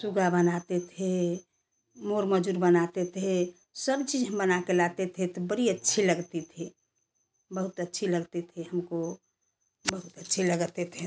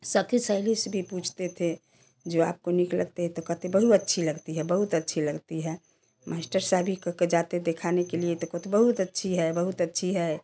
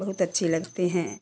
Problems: constant background noise, background conversations at intervals